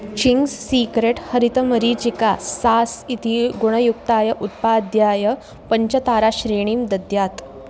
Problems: constant background noise